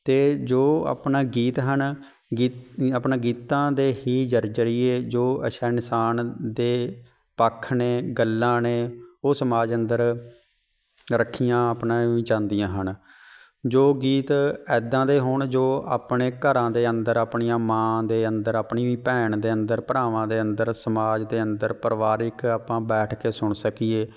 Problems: background sounds at intervals